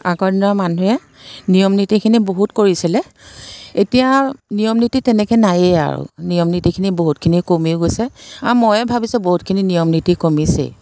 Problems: constant background noise